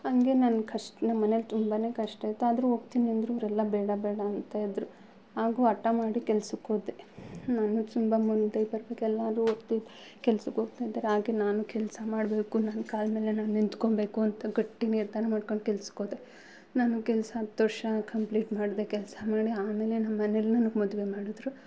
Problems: none marked